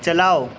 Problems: constant background noise